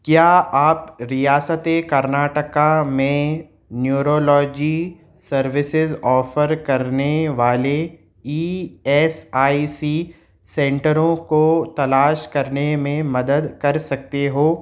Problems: none marked